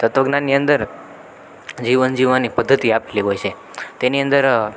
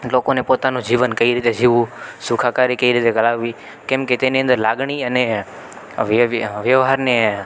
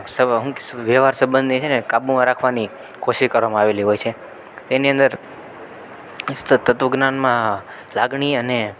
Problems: constant background noise